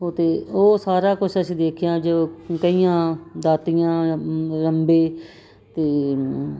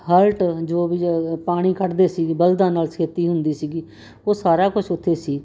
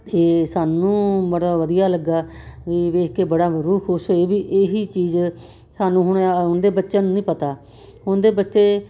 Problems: none marked